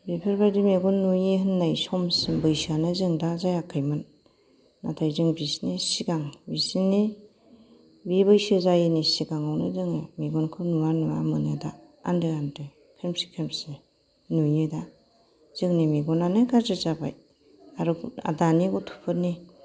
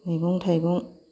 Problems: background sounds at intervals